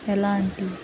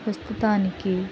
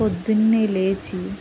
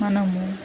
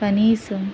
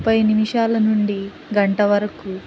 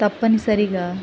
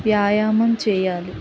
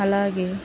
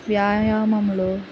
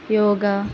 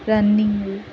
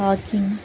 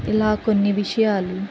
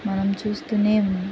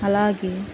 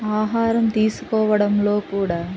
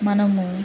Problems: none marked